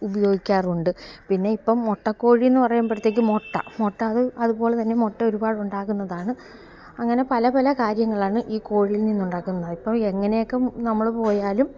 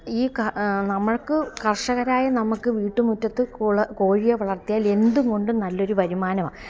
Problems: background sounds at intervals